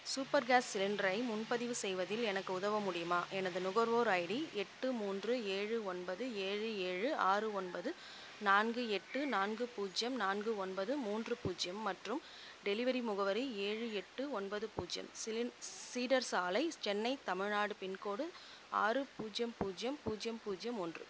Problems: constant background noise, low volume